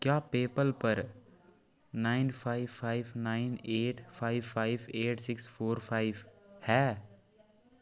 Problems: none marked